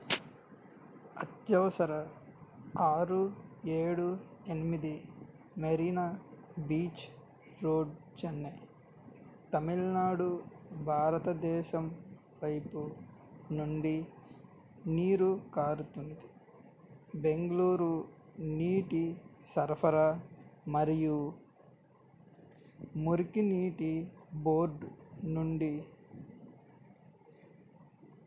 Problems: low volume